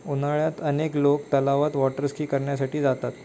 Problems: none marked